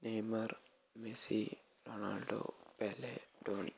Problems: low volume